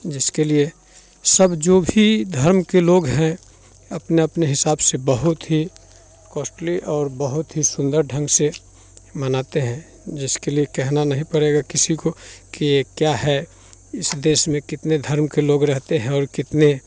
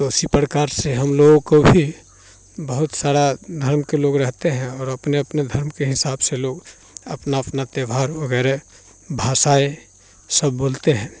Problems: constant background noise, continuous background conversations